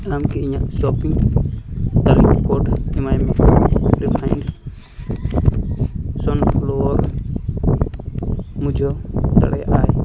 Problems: constant background noise